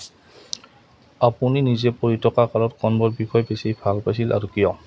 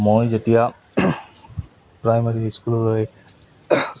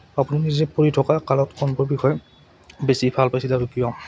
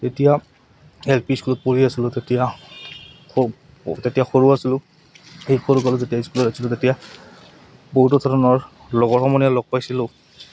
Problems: none marked